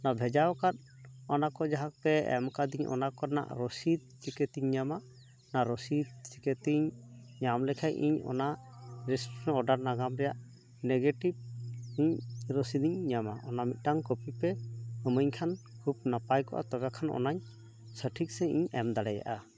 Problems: constant background noise, background conversations at intervals